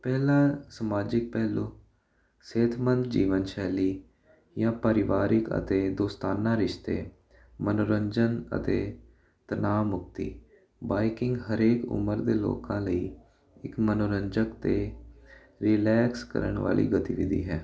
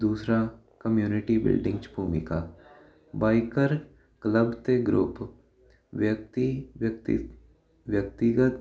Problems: constant background noise